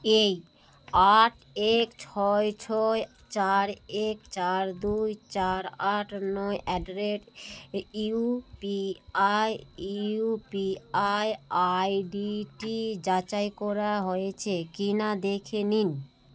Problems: constant background noise